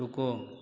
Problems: constant background noise